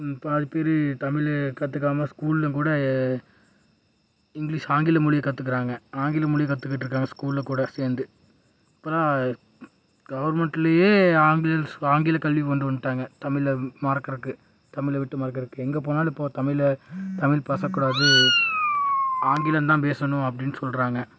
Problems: background sounds at intervals